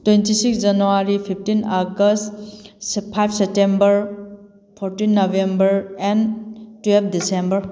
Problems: none marked